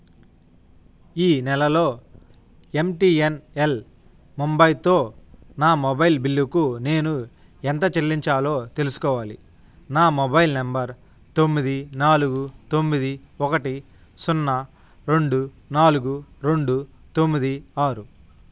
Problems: none marked